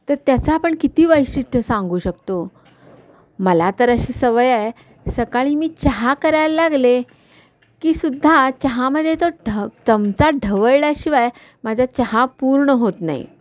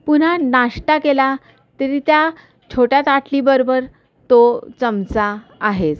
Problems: none marked